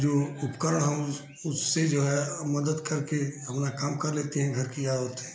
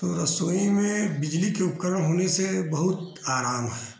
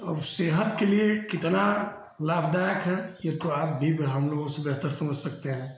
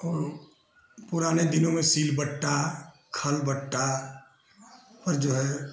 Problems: constant background noise, echo